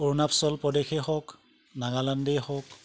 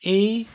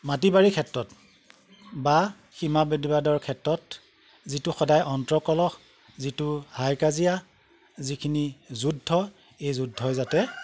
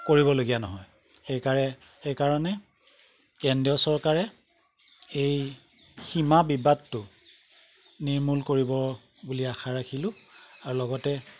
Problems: background sounds at intervals